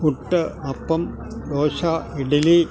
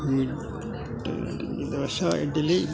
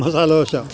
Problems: constant background noise